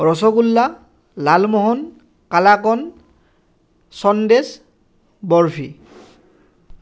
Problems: none marked